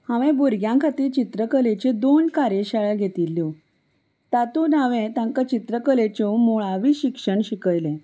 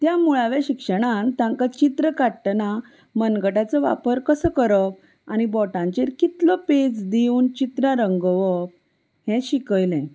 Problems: none marked